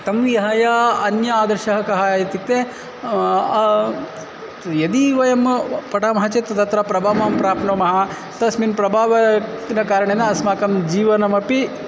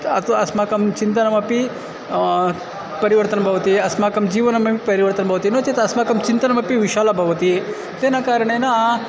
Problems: constant background noise, continuous background conversations